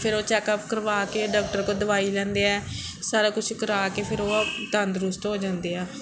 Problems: background sounds at intervals, background conversations at intervals